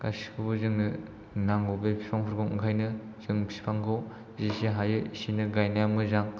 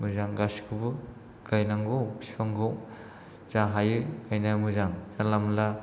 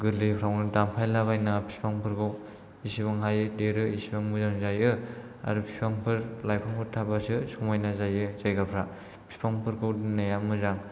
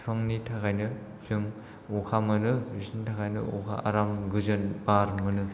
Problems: low volume